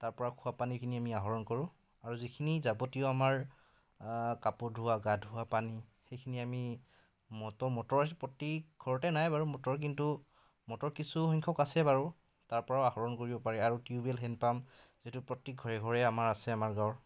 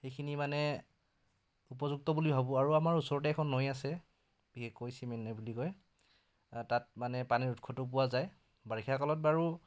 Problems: background conversations at intervals